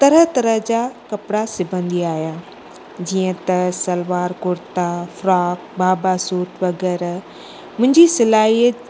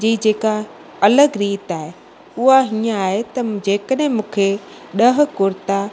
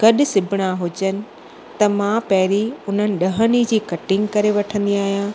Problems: constant background noise, echo